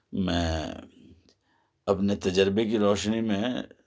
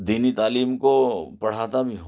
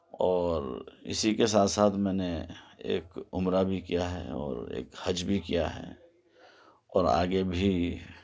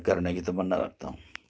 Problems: none marked